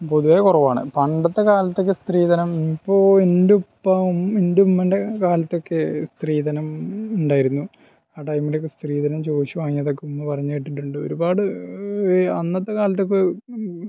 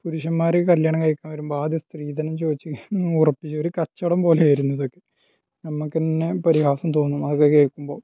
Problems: low volume